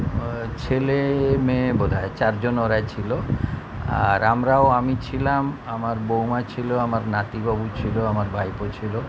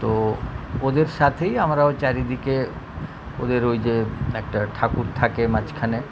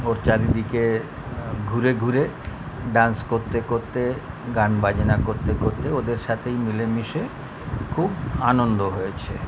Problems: none marked